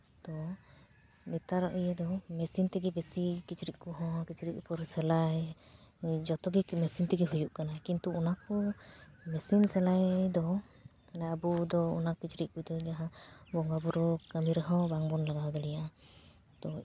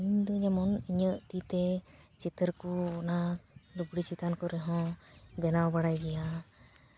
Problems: constant background noise, background conversations at intervals